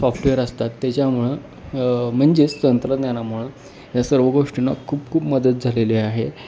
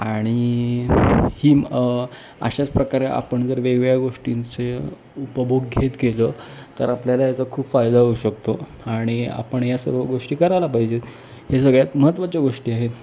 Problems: none marked